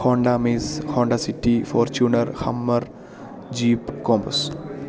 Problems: none marked